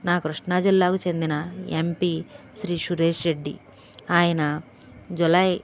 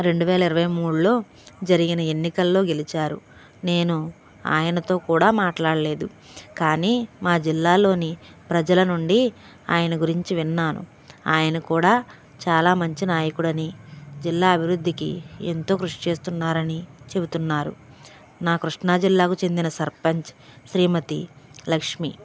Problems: none marked